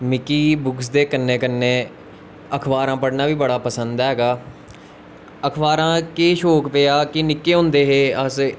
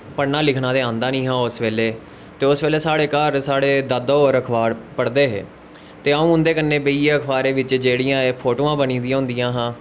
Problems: constant background noise